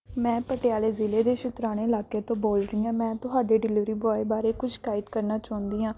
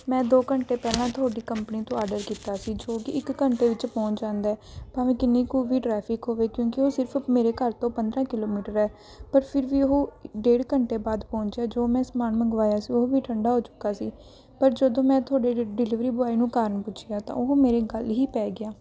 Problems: background sounds at intervals